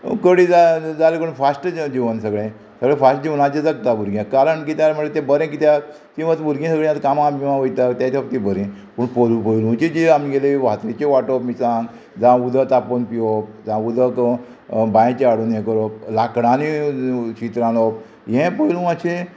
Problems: constant background noise